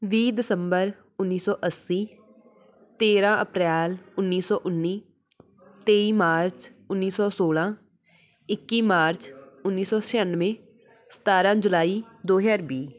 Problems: none marked